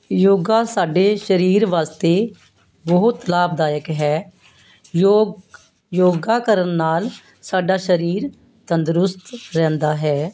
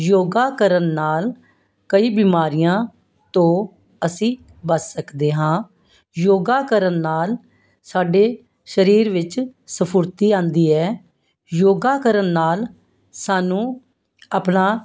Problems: constant background noise